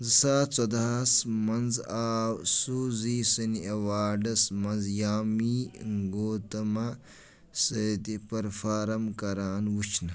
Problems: none marked